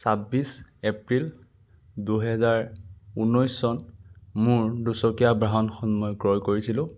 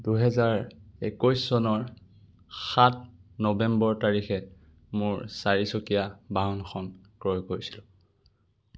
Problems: none marked